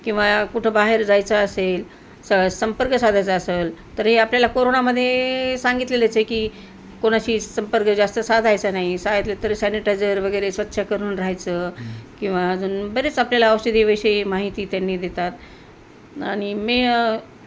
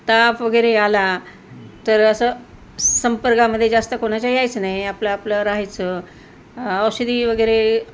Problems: constant background noise